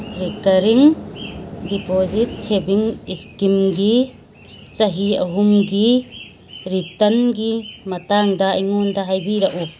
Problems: background sounds at intervals